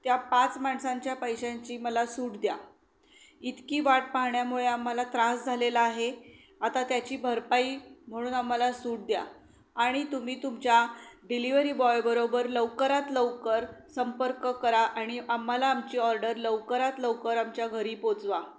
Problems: background sounds at intervals